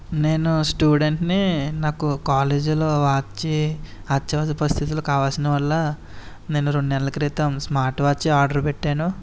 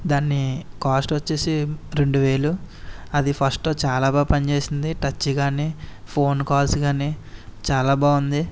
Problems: none marked